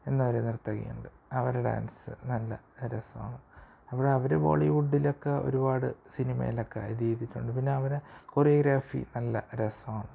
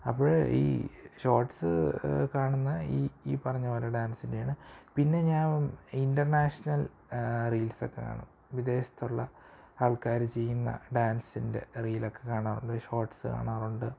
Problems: low volume